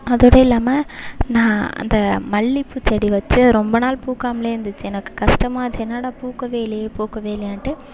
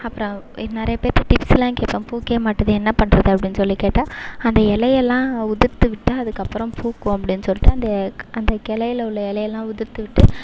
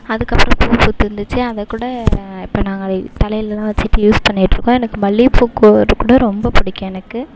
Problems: background sounds at intervals